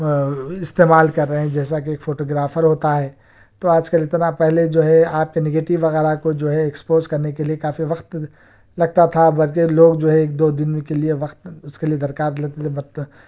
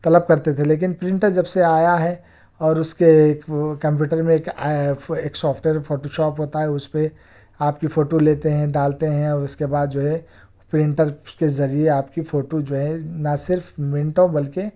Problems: none marked